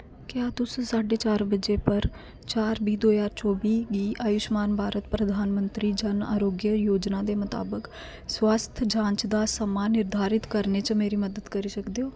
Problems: constant background noise